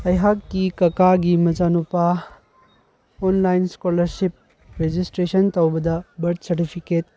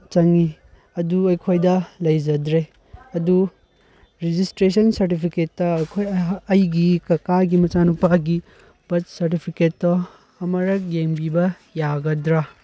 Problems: none marked